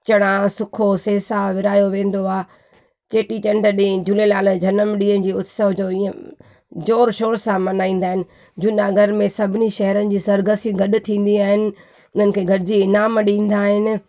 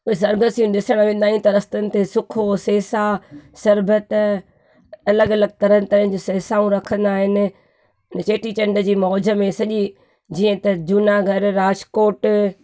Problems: none marked